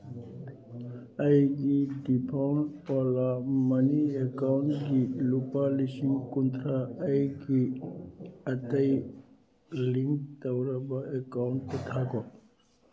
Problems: background sounds at intervals, background conversations at intervals